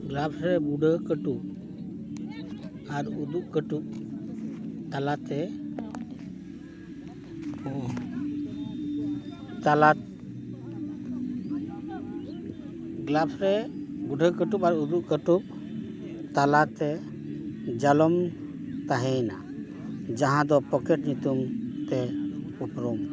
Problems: constant background noise